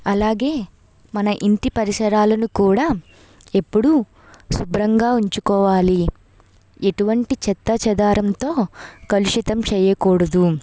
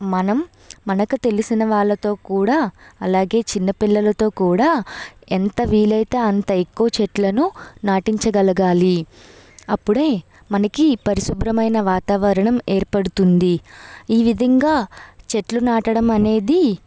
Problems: none marked